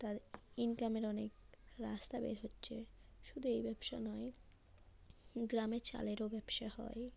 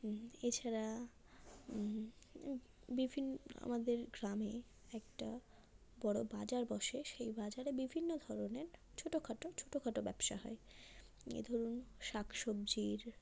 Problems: constant background noise, low volume